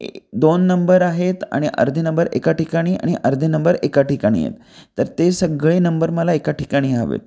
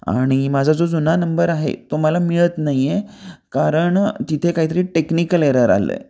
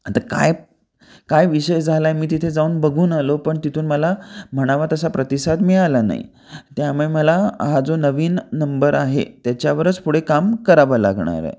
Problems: none marked